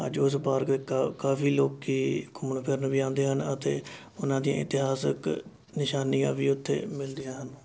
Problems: constant background noise